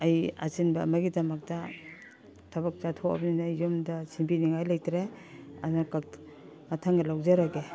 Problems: background sounds at intervals